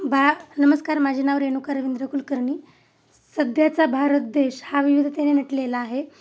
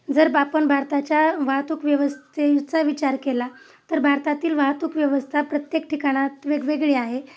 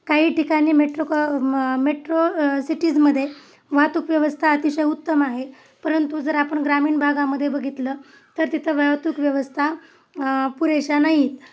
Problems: none marked